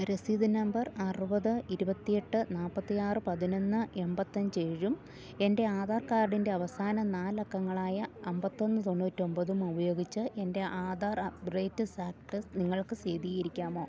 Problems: none marked